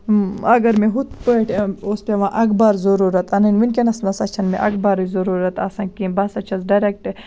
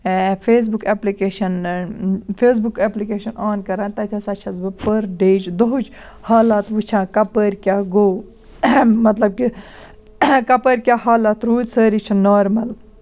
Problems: none marked